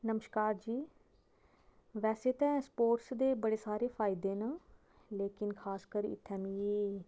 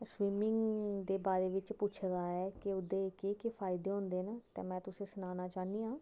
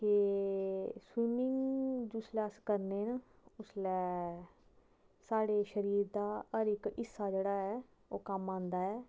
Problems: background sounds at intervals